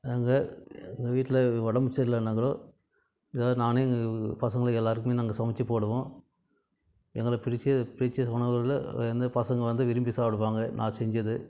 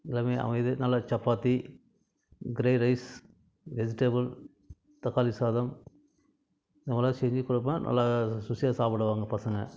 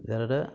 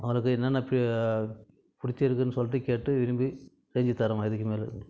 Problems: background conversations at intervals